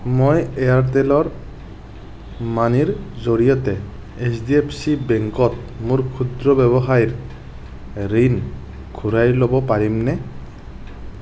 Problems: constant background noise